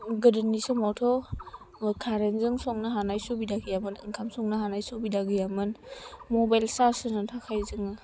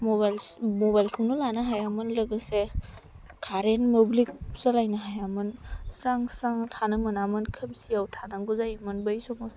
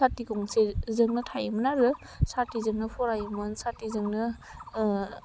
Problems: low volume